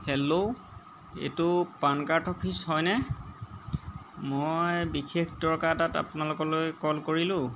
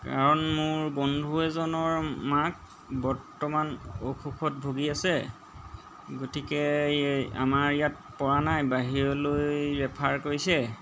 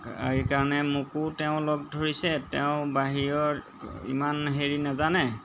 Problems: background sounds at intervals